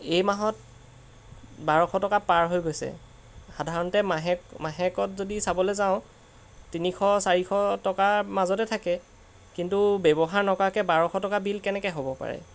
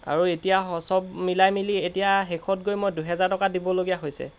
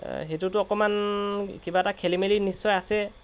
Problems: background sounds at intervals